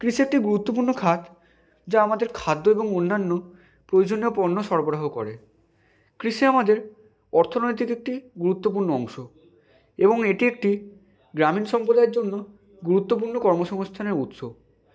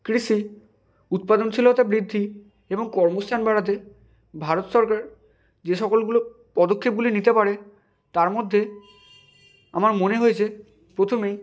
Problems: none marked